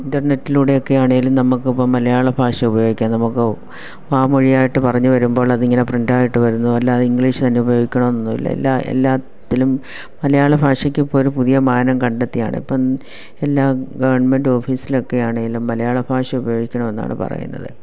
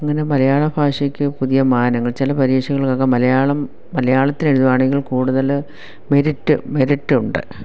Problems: none marked